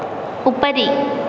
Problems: constant background noise